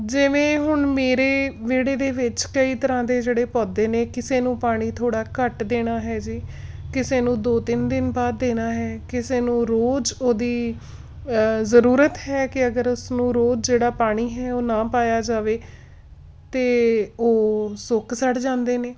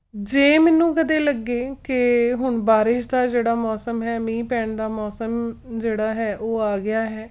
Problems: background sounds at intervals